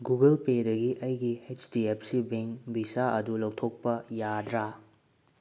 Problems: low volume